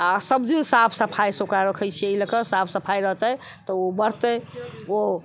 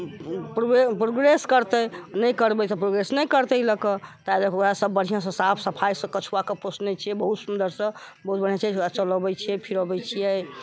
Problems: constant background noise